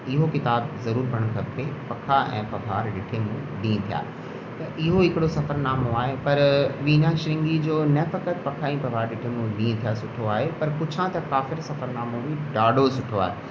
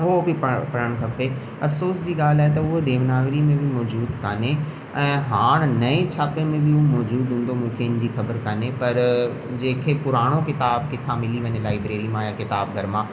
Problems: constant background noise, echo